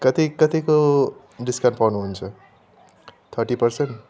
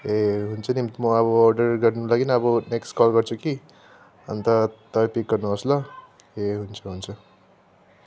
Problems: none marked